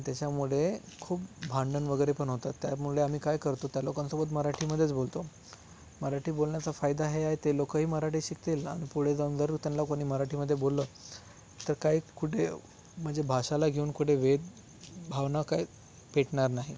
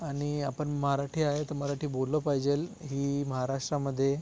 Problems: none marked